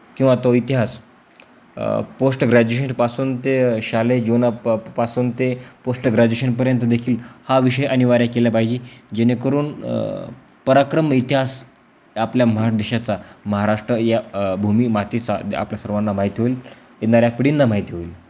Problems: constant background noise